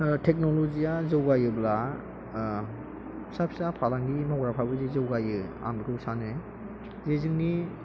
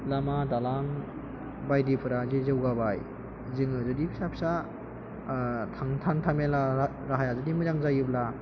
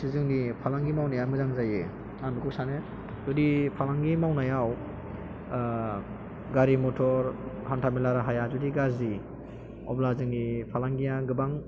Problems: constant background noise